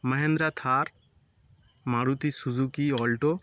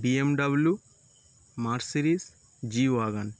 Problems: background sounds at intervals